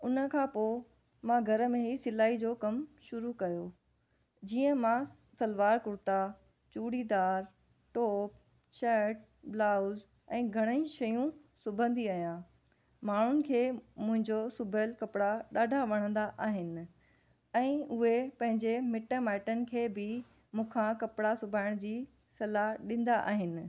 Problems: none marked